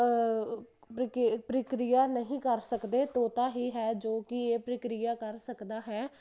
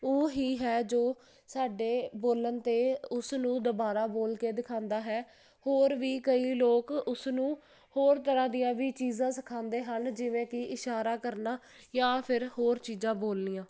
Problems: constant background noise